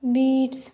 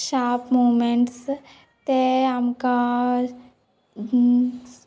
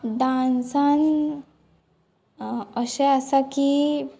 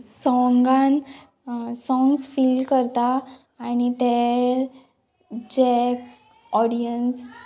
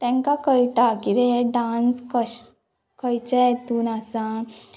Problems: none marked